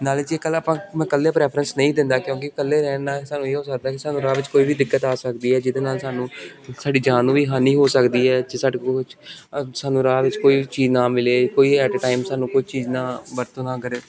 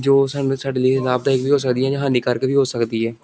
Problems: constant background noise